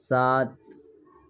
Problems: none marked